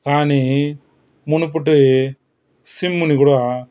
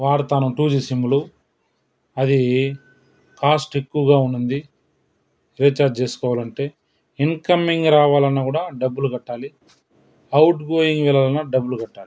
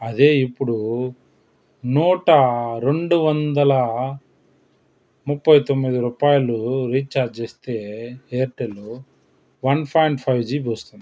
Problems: background sounds at intervals